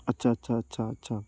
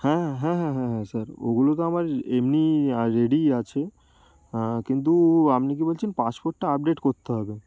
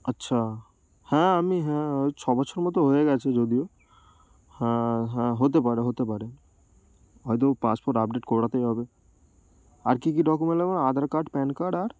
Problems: none marked